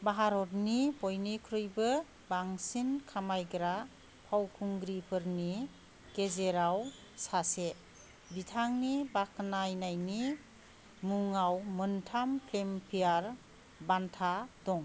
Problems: none marked